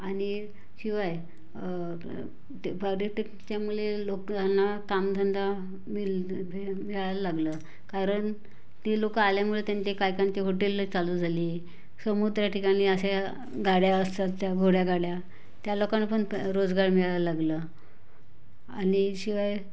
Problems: constant background noise, background conversations at intervals